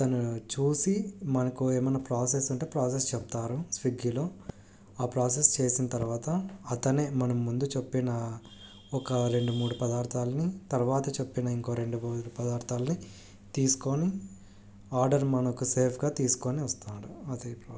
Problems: low volume